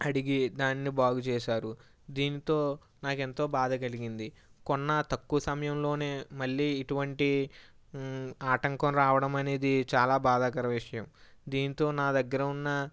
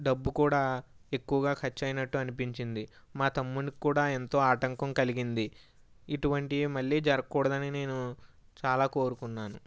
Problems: none marked